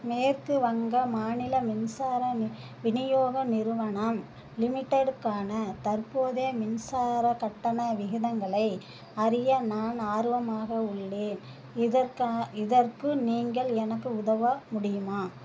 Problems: background sounds at intervals